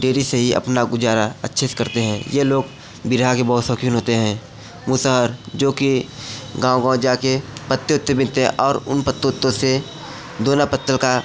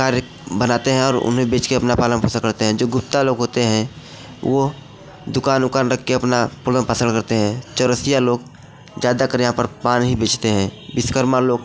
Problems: constant background noise, background conversations at intervals